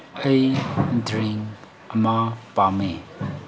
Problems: constant background noise